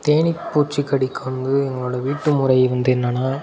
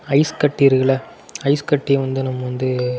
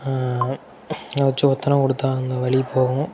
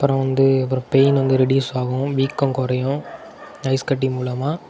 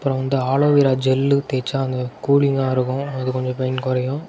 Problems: constant background noise